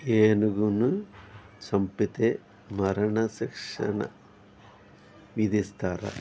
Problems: background sounds at intervals